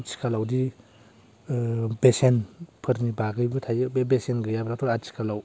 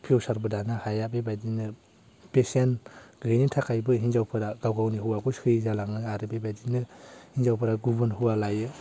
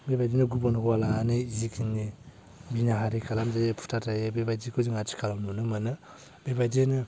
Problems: low volume